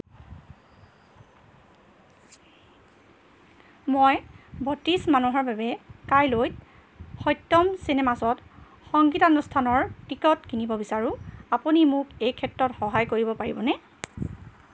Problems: background sounds at intervals